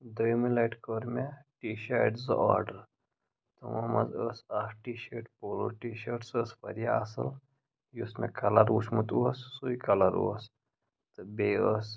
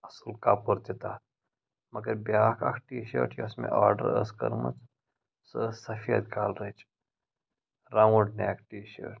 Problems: background sounds at intervals, low volume